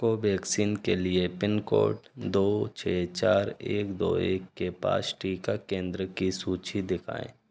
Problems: constant background noise